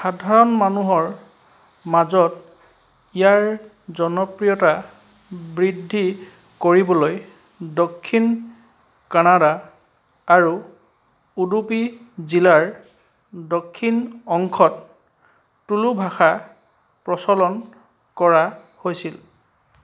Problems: none marked